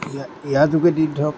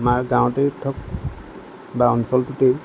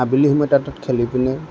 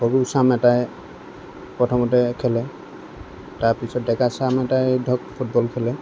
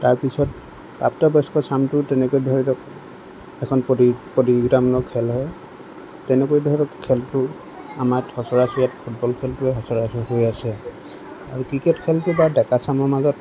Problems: none marked